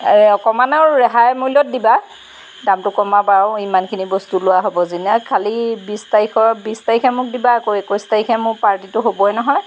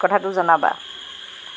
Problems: background sounds at intervals